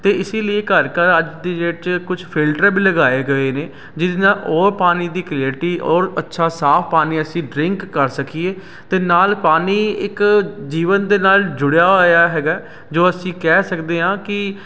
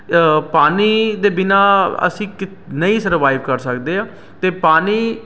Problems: constant background noise